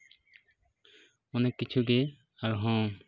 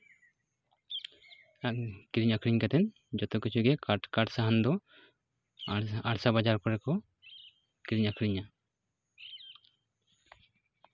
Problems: constant background noise